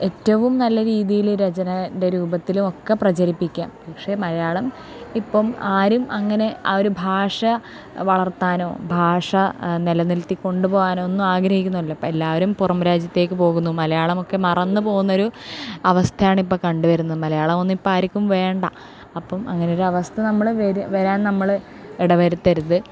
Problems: none marked